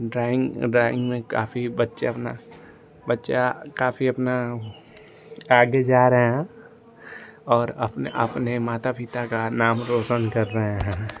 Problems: constant background noise